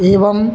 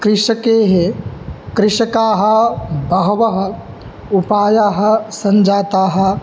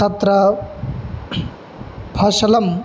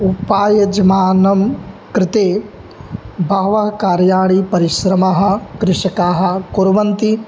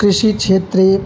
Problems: background sounds at intervals